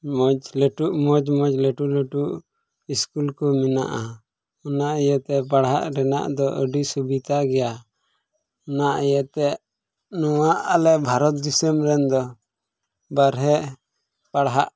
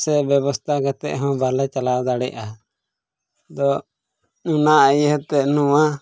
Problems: background sounds at intervals, low volume